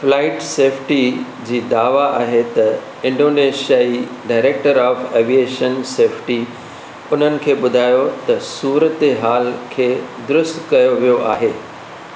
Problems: constant background noise